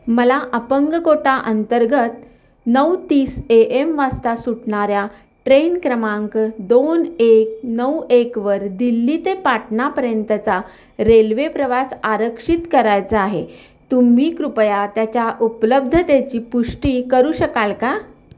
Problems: none marked